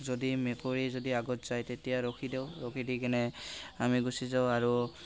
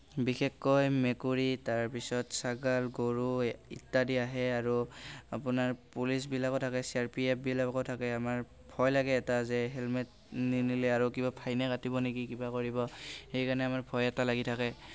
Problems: background sounds at intervals, background conversations at intervals